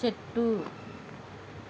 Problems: constant background noise